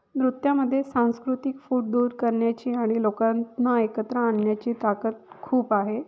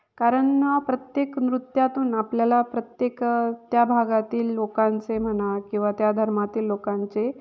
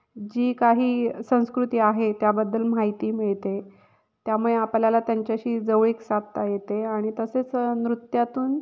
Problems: background sounds at intervals, echo